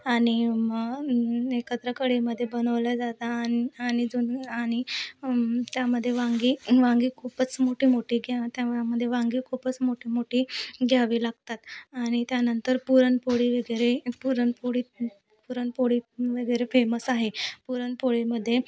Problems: constant background noise, background conversations at intervals